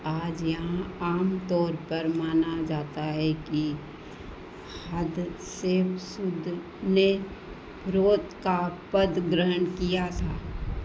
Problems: constant background noise, echo